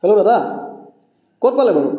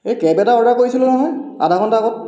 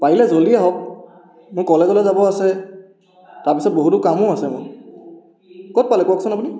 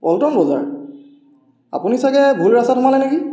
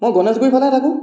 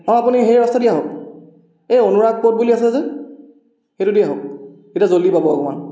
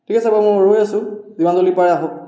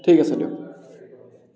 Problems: background sounds at intervals